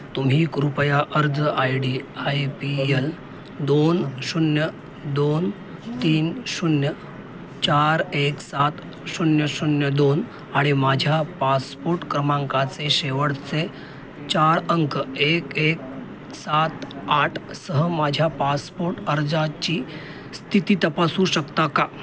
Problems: constant background noise, background conversations at intervals